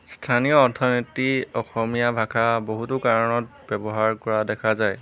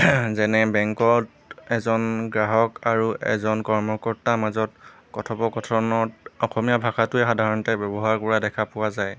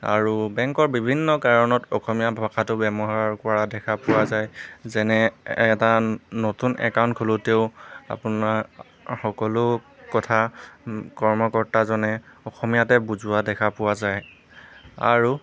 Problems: background sounds at intervals